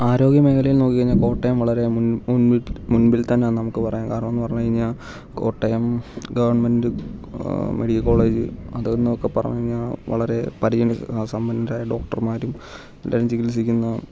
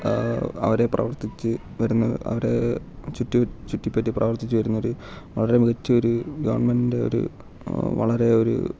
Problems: low volume